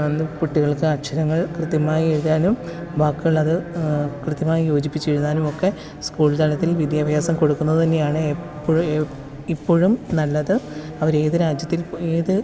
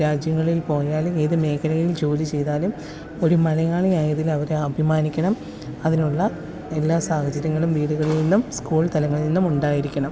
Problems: constant background noise